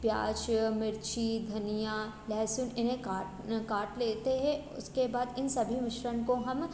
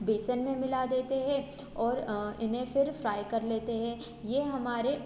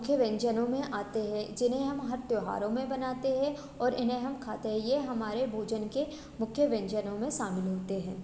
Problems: none marked